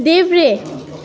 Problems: constant background noise